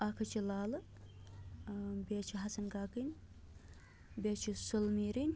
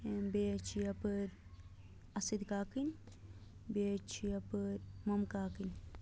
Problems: low volume